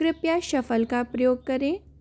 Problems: constant background noise